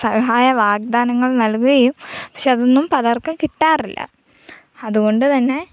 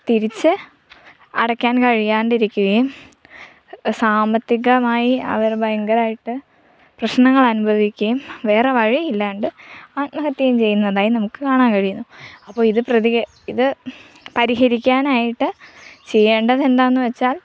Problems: none marked